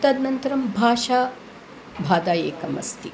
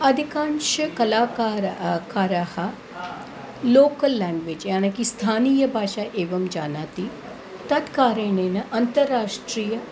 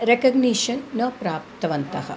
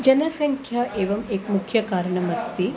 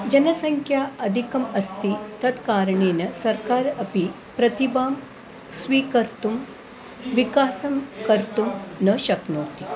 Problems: constant background noise, background conversations at intervals